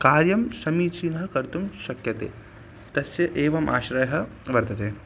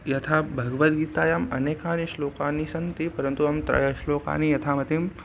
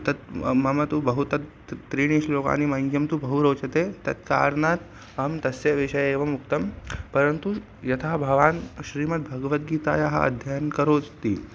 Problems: constant background noise